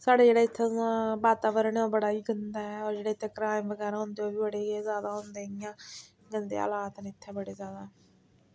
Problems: background sounds at intervals